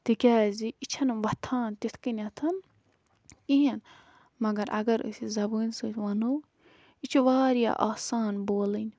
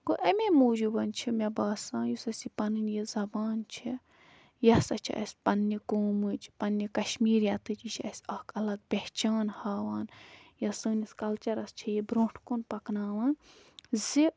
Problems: background sounds at intervals